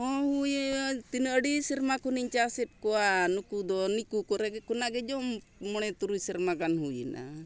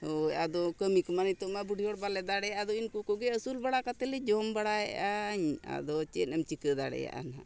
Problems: none marked